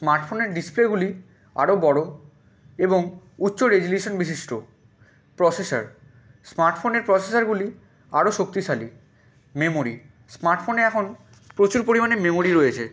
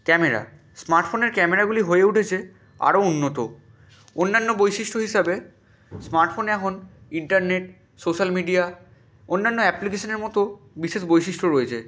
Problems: background sounds at intervals